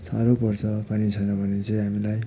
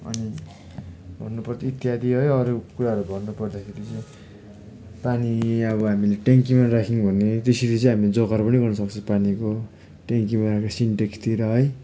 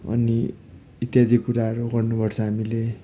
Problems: none marked